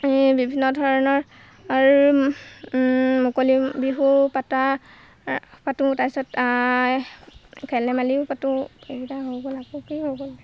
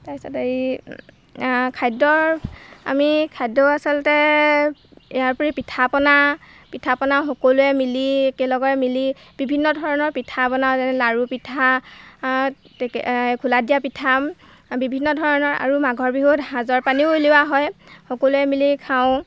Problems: none marked